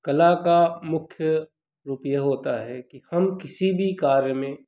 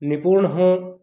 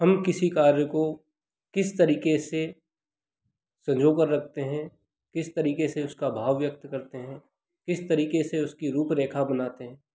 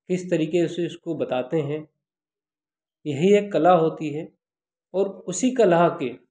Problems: constant background noise